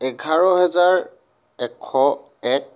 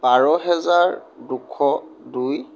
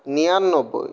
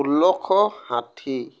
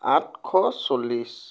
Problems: none marked